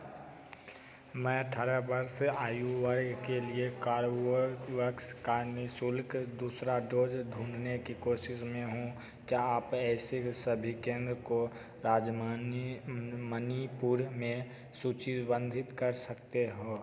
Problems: constant background noise, echo